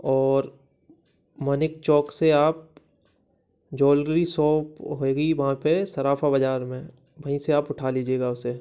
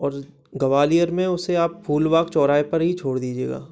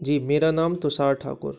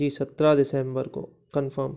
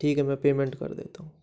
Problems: background sounds at intervals